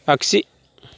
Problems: none marked